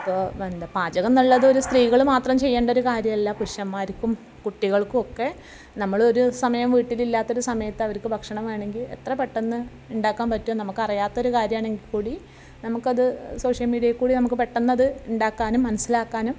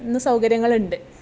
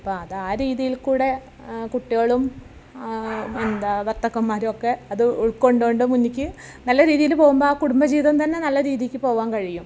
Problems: none marked